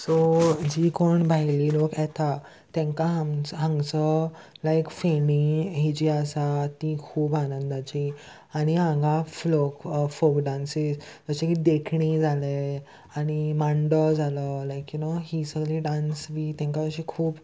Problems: constant background noise